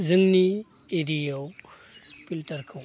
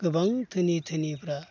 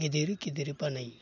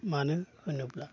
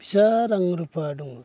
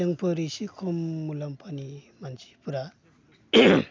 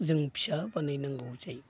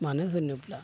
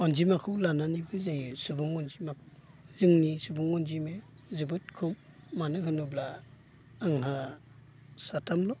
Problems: constant background noise